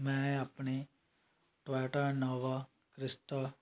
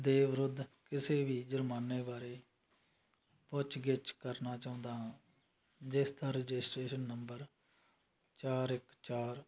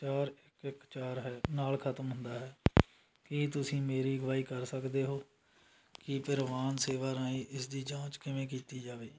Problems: none marked